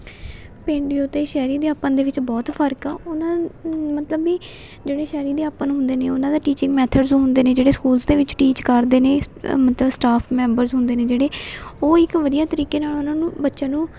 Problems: constant background noise, continuous background conversations